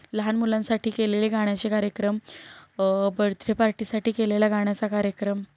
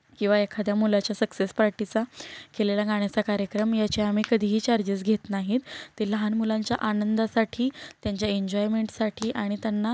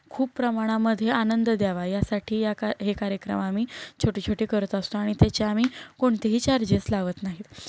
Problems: background sounds at intervals